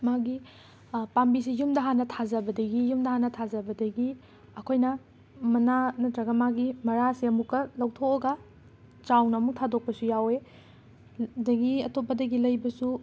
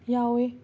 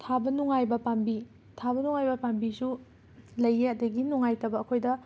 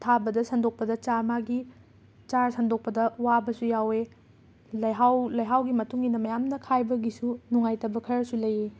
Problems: constant background noise